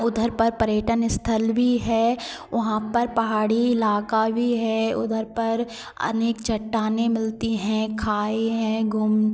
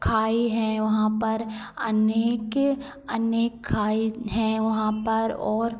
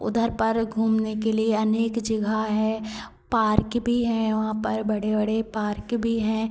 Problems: constant background noise, continuous background conversations